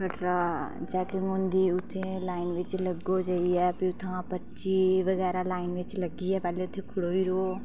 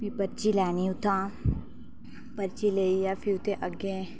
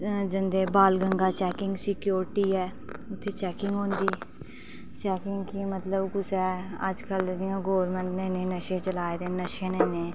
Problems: background sounds at intervals, low volume